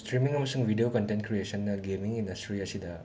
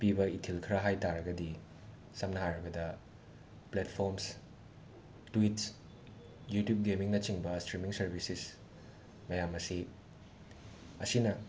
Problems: background sounds at intervals, background conversations at intervals